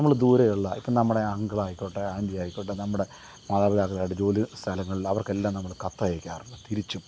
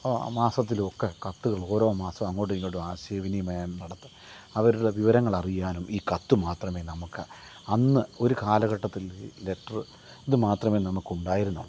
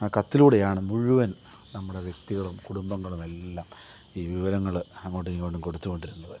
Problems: none marked